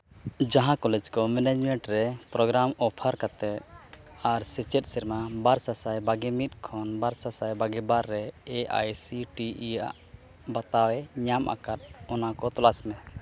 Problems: constant background noise